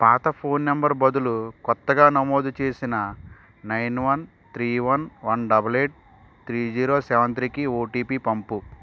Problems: constant background noise